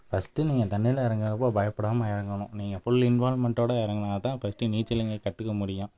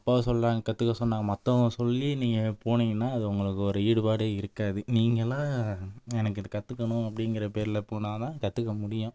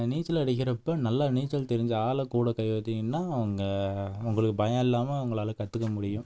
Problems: background sounds at intervals